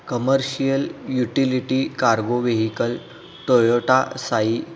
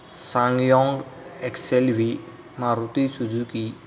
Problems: constant background noise